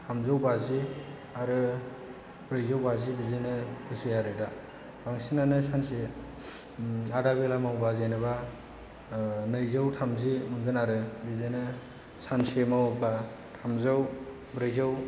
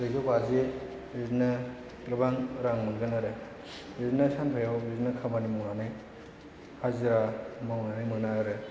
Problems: none marked